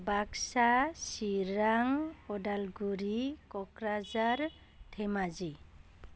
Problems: none marked